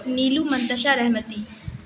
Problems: constant background noise, continuous background conversations